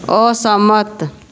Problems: none marked